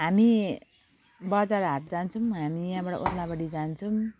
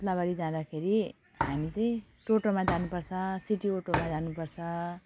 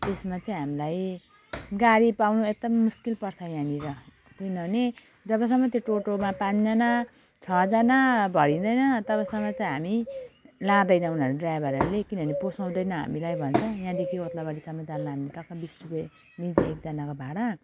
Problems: constant background noise